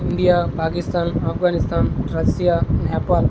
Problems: constant background noise